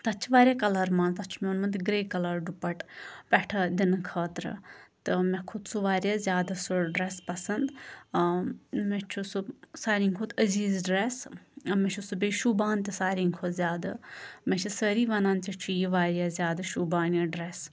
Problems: constant background noise